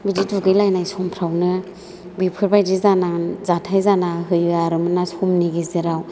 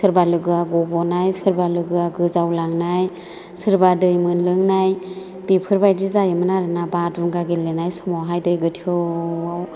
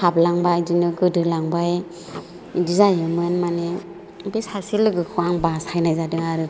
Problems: low volume